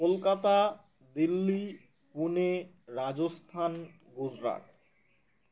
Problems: background sounds at intervals